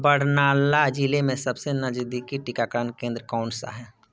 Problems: background sounds at intervals, background conversations at intervals